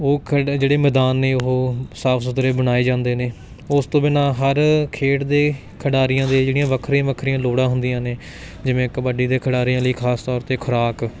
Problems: constant background noise